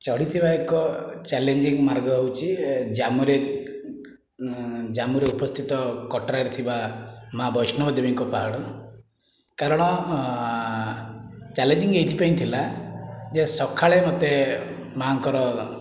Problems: none marked